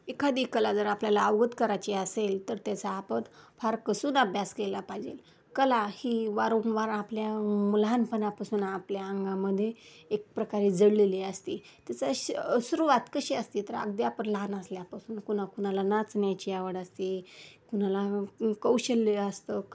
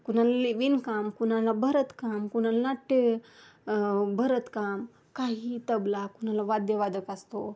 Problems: background sounds at intervals